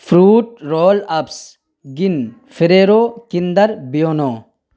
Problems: none marked